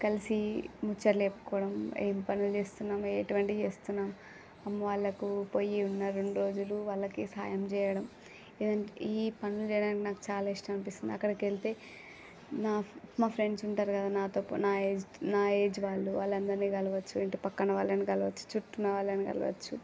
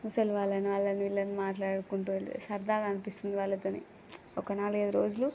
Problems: none marked